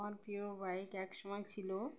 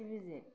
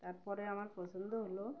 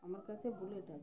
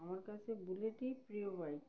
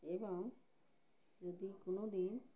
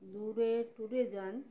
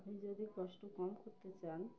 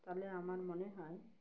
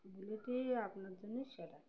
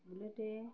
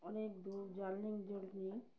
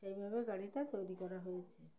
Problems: background sounds at intervals